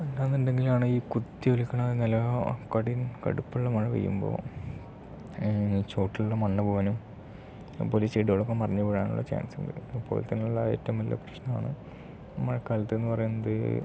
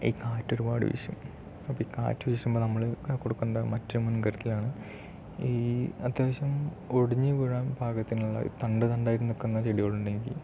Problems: none marked